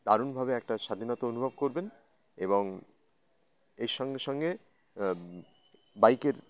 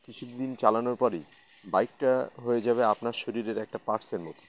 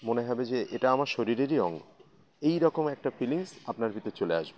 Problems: constant background noise